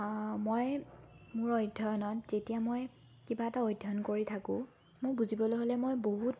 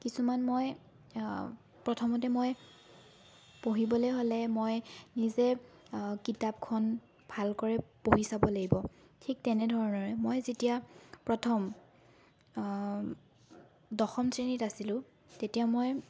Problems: constant background noise